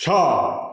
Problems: background sounds at intervals, echo